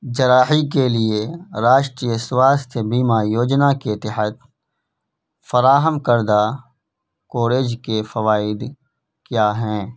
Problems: background sounds at intervals